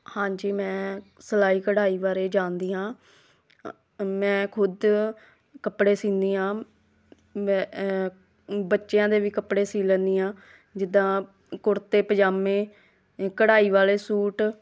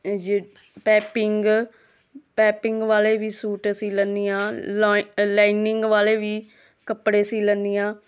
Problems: background conversations at intervals